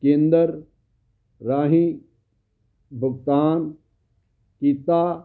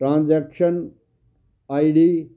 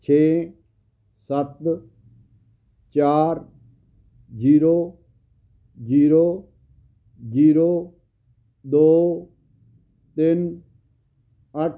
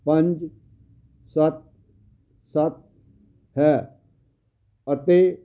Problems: background sounds at intervals